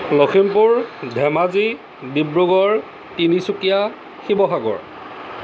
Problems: constant background noise